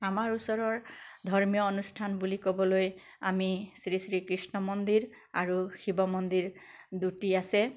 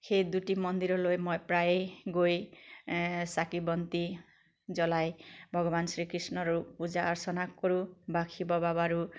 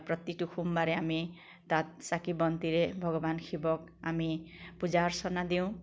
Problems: none marked